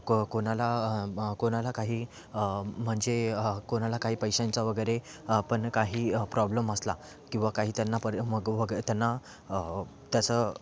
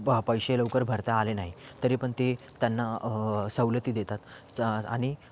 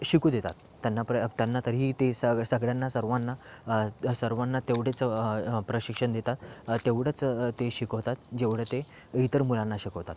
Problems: constant background noise